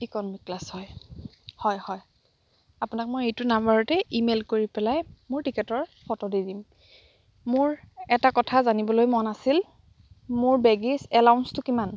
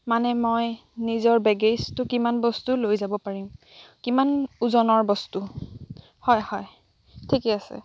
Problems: background sounds at intervals